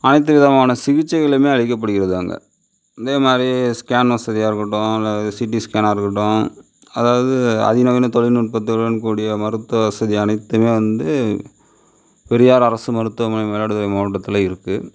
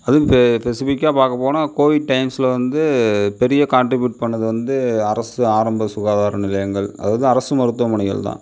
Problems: none marked